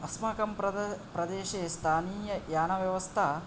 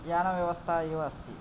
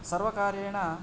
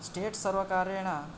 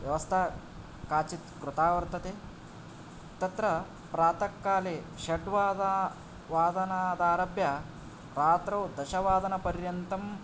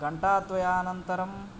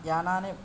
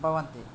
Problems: none marked